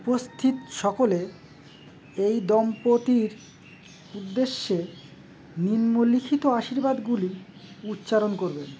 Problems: constant background noise